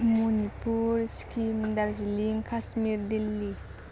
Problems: none marked